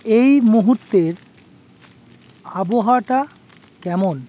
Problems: constant background noise